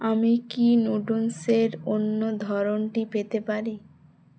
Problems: none marked